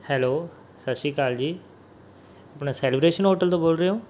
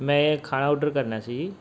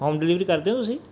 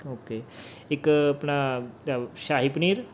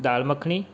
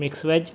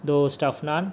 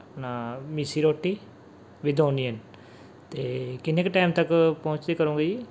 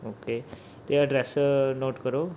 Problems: background sounds at intervals